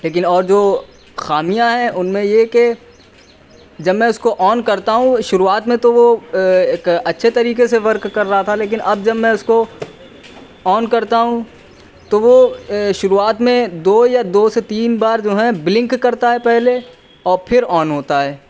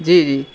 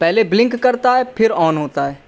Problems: none marked